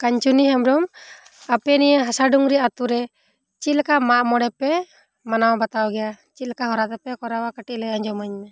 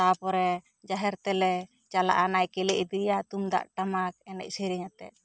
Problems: low volume